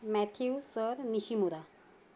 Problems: background sounds at intervals